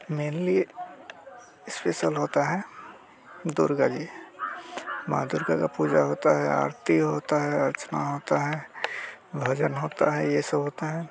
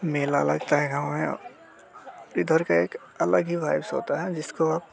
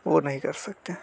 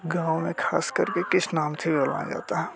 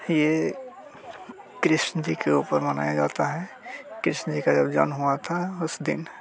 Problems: none marked